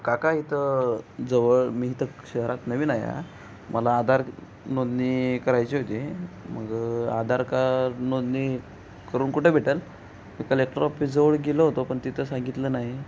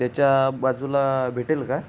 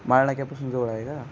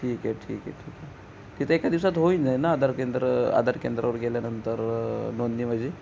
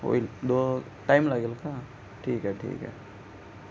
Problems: background sounds at intervals